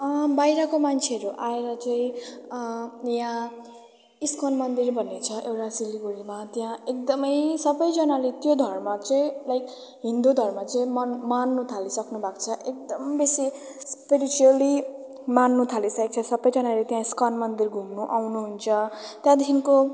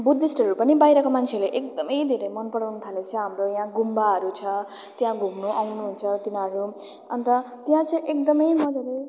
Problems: constant background noise